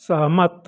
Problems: constant background noise